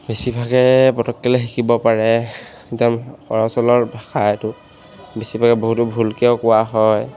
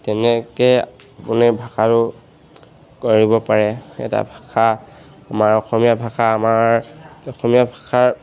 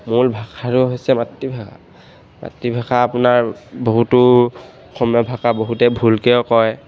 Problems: none marked